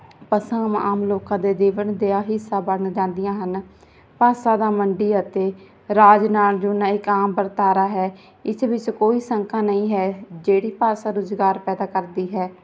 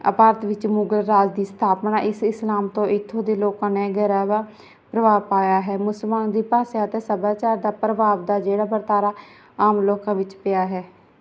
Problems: none marked